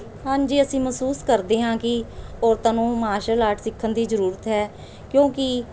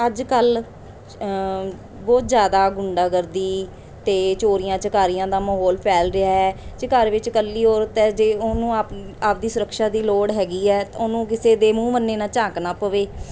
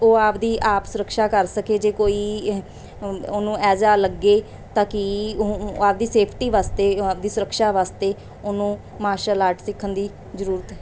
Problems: none marked